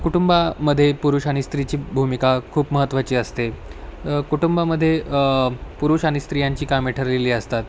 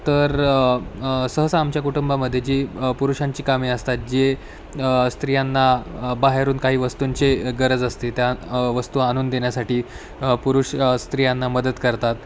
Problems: constant background noise, background conversations at intervals